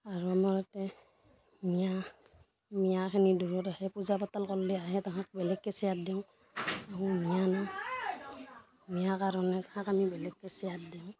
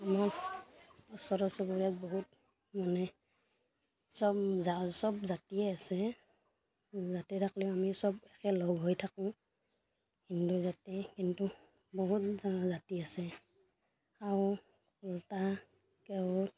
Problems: constant background noise, background conversations at intervals